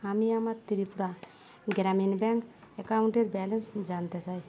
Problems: constant background noise